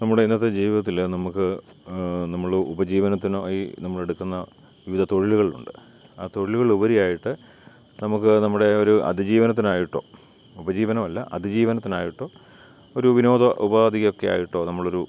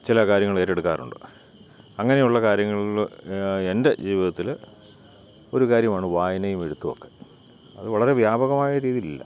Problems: none marked